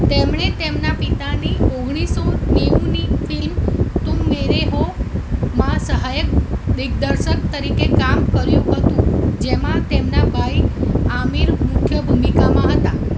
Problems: constant background noise